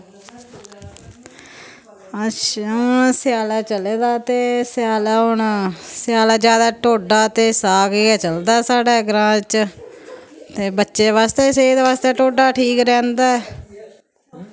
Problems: constant background noise, background conversations at intervals